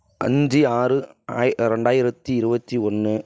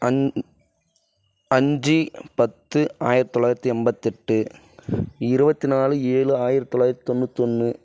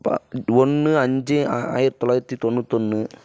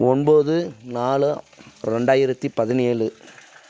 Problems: background sounds at intervals